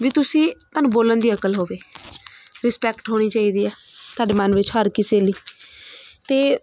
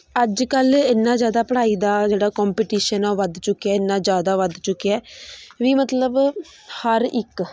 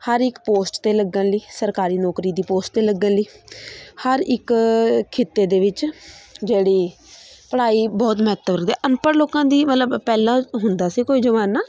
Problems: none marked